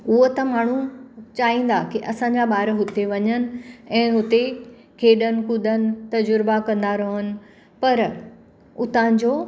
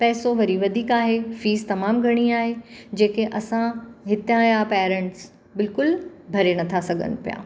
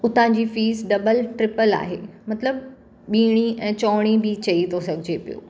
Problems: constant background noise